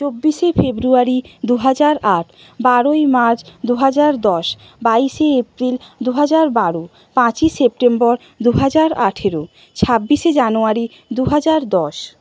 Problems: none marked